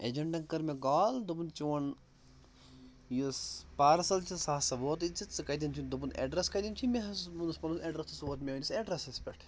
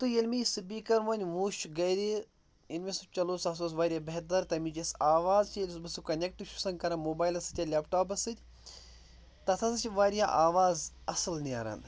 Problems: none marked